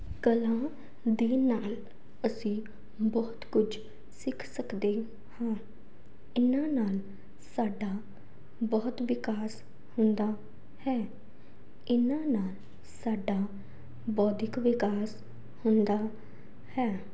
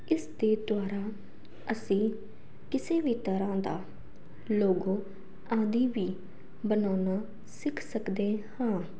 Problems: background sounds at intervals